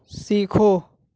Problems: none marked